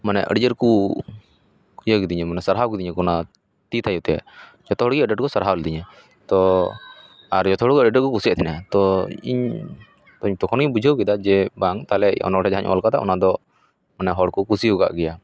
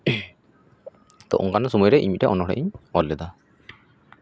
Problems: background conversations at intervals